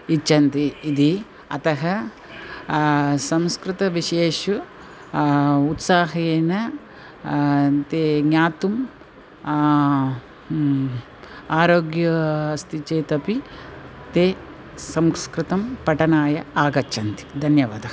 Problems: constant background noise